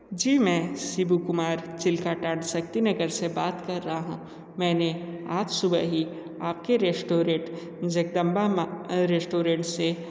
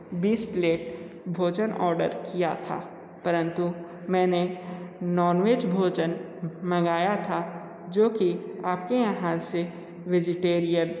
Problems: echo